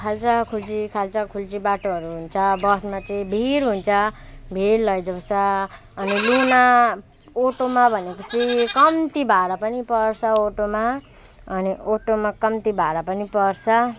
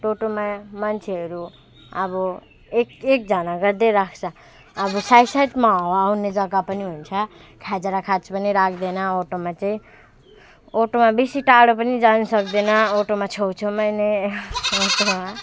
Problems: constant background noise